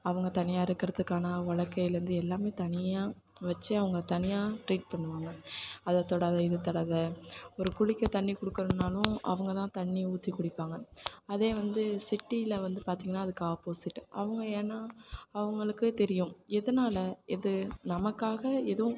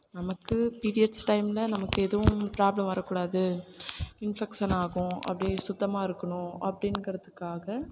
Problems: background sounds at intervals